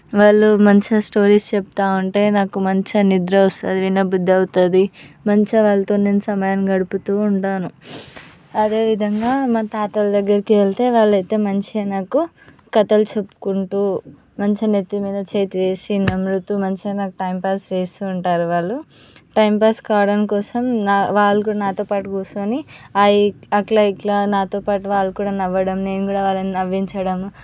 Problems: background sounds at intervals